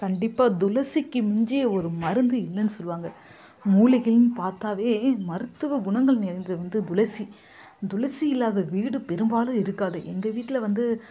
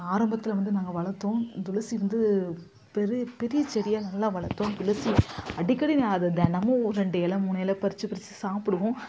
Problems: background conversations at intervals